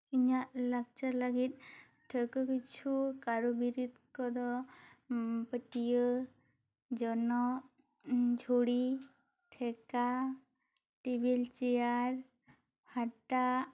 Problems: none marked